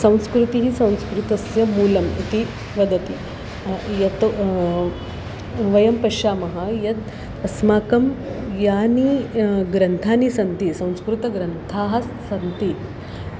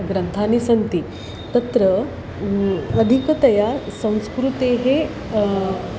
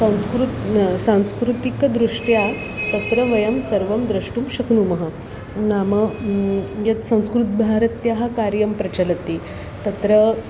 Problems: constant background noise